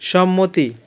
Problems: none marked